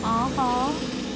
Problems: constant background noise